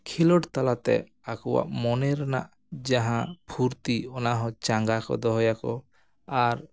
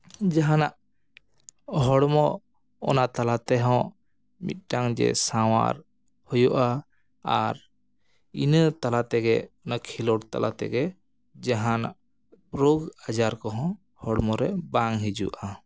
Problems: none marked